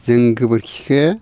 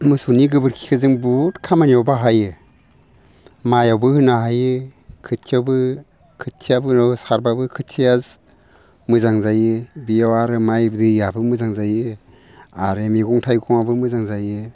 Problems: none marked